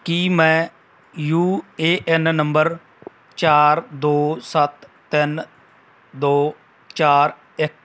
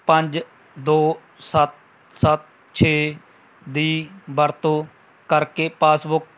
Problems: none marked